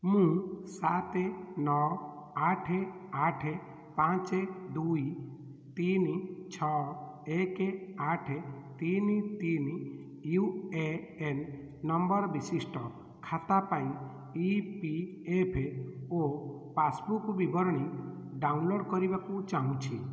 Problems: none marked